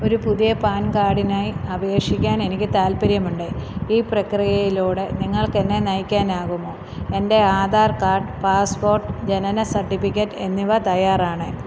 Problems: background sounds at intervals